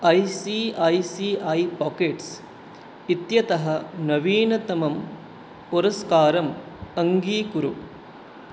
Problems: none marked